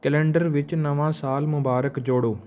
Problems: background sounds at intervals